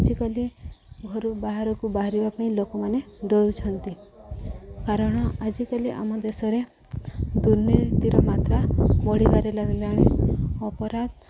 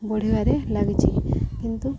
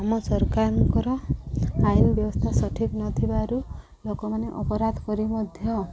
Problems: constant background noise, background conversations at intervals